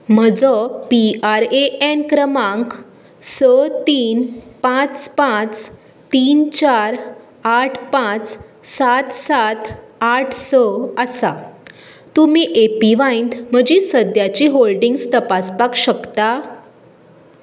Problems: none marked